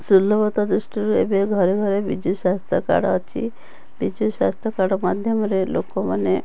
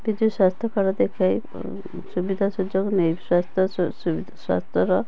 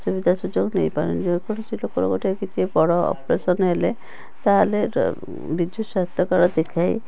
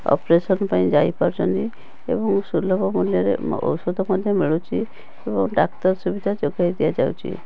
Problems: constant background noise, continuous background conversations